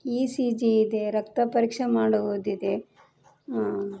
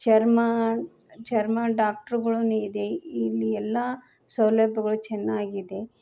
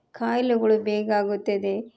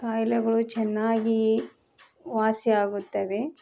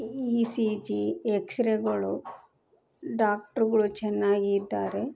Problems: background sounds at intervals